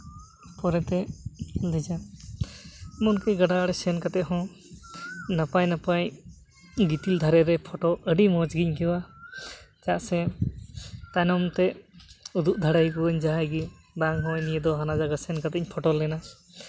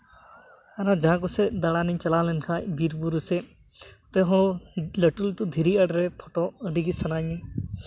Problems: background sounds at intervals